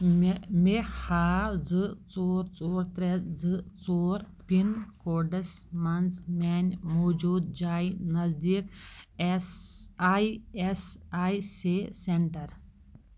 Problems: background sounds at intervals